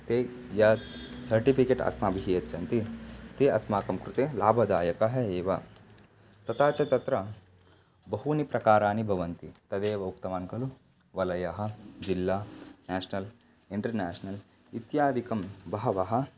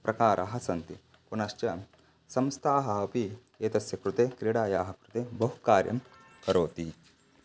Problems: constant background noise